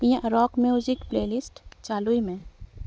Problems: none marked